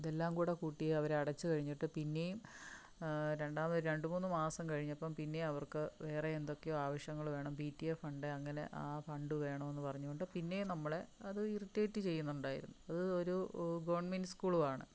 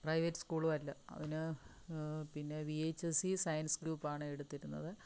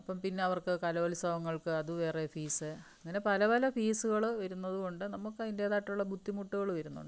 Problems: low volume